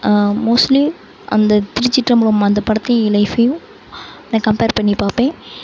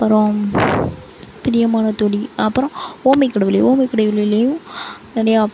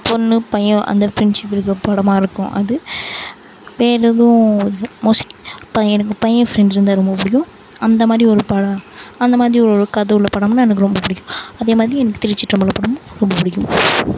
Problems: none marked